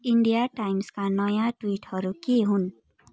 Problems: none marked